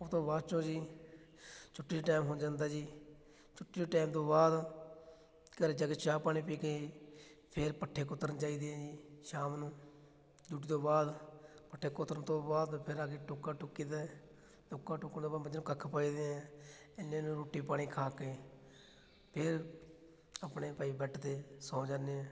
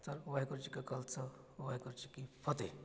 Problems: background sounds at intervals